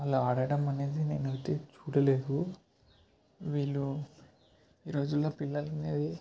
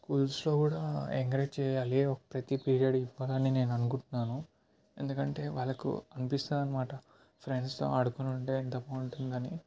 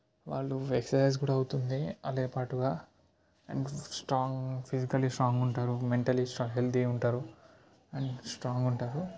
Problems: background sounds at intervals